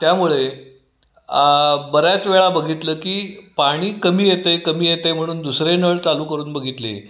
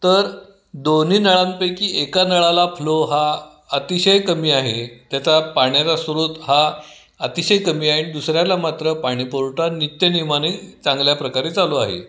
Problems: background sounds at intervals